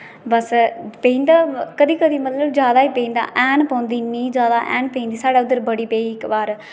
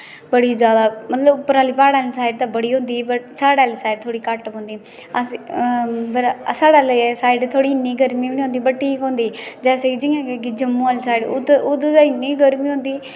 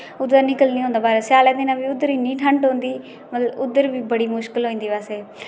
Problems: constant background noise